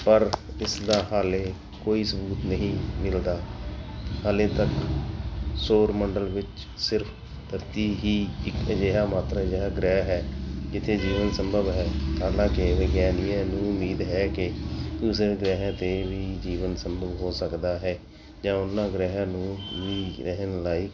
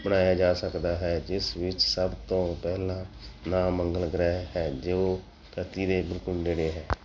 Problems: background sounds at intervals